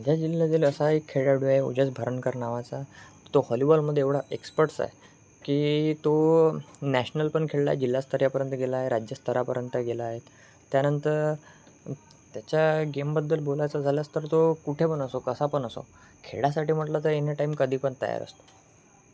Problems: background sounds at intervals